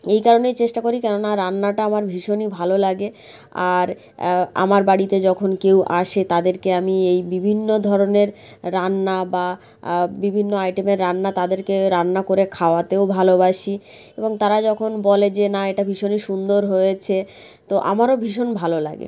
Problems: none marked